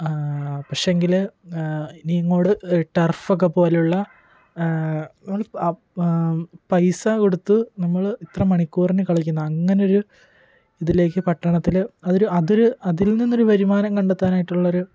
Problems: none marked